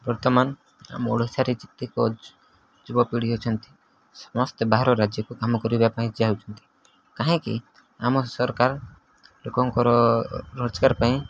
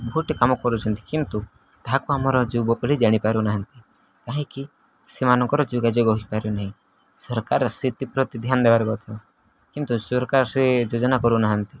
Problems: none marked